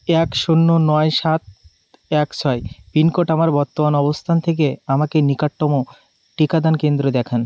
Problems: constant background noise